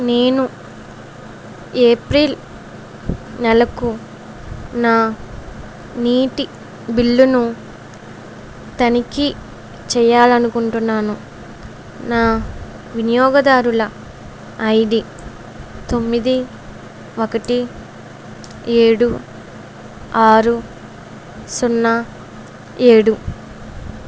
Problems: none marked